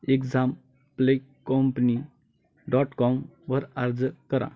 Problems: background sounds at intervals, continuous background conversations